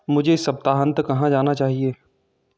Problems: constant background noise